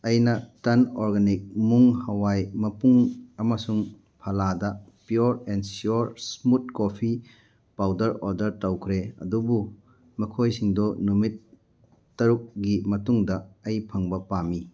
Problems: none marked